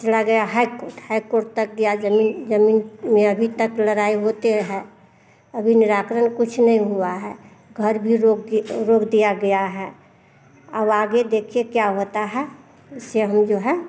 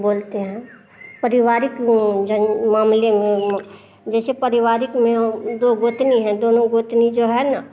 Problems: none marked